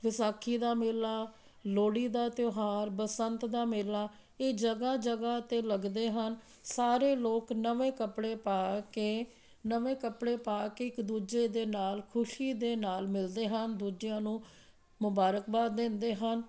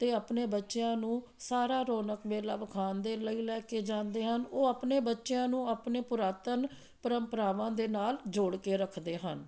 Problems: none marked